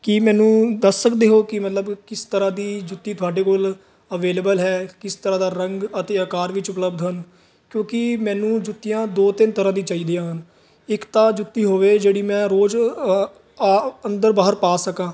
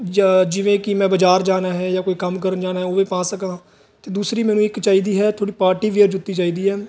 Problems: continuous background conversations